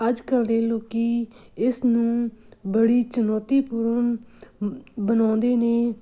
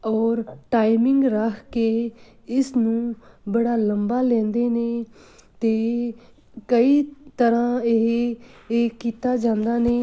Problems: background sounds at intervals